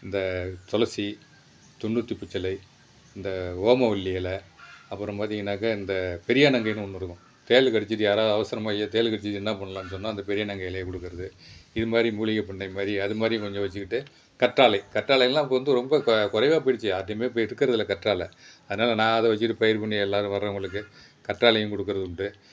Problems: background sounds at intervals